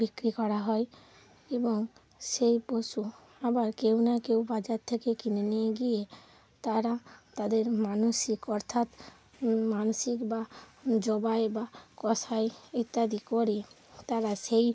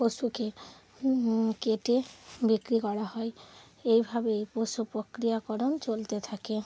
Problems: constant background noise